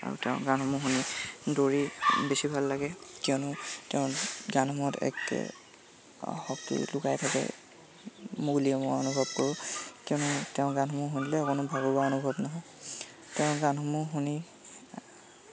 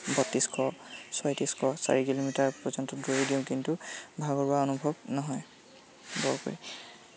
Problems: constant background noise